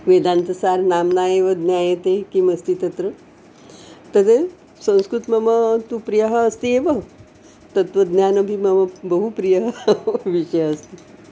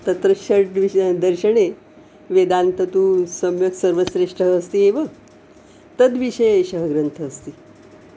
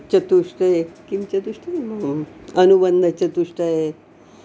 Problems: background sounds at intervals